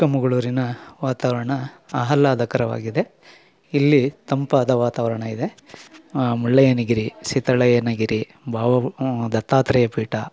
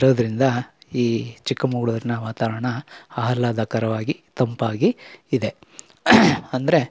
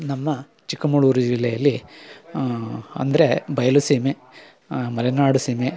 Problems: none marked